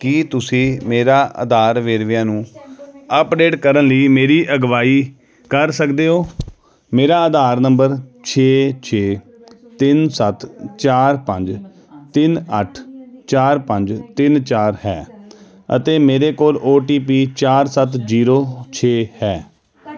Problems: continuous background conversations